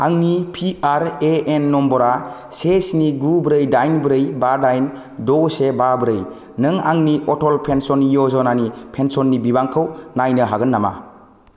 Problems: low volume